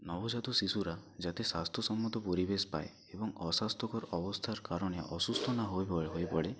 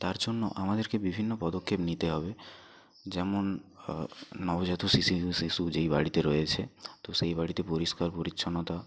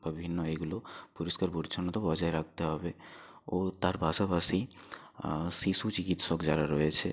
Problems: background sounds at intervals, low volume